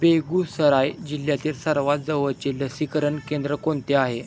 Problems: background sounds at intervals